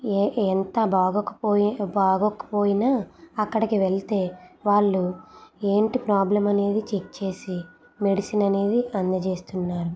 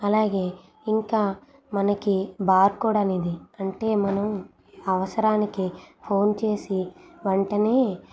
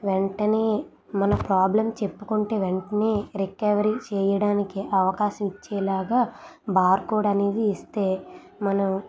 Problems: none marked